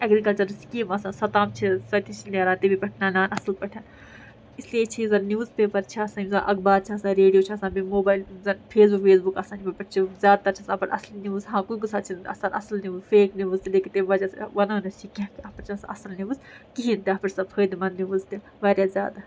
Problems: background sounds at intervals